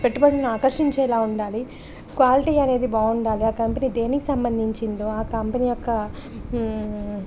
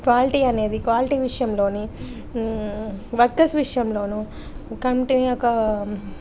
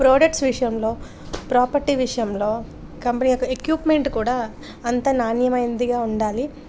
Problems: none marked